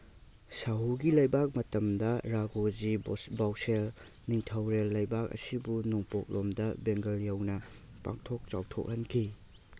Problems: none marked